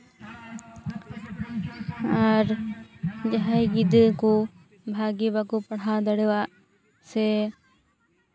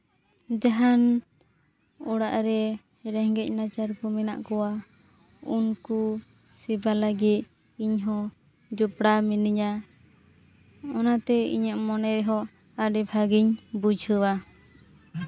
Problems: constant background noise, background conversations at intervals